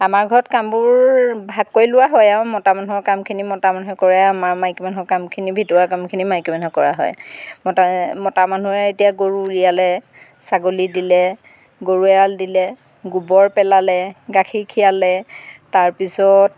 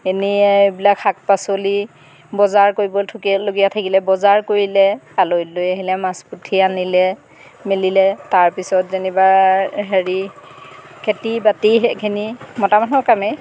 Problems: none marked